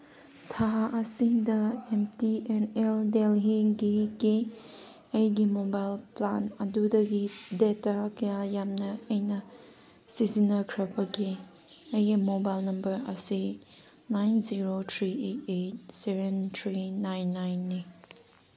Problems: none marked